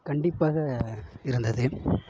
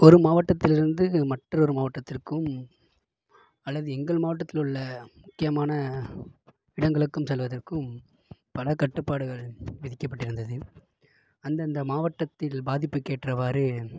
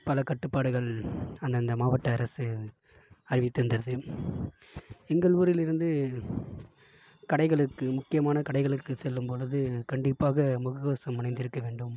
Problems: low volume